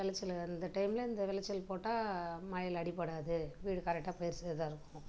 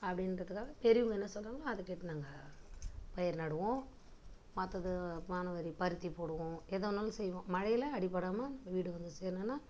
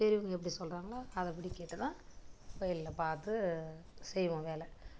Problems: low volume